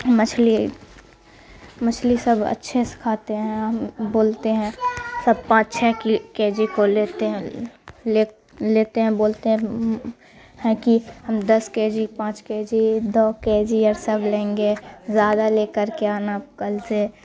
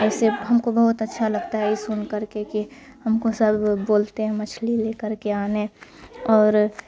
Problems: constant background noise